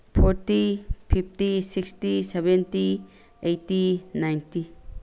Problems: constant background noise